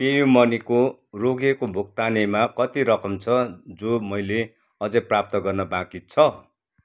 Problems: none marked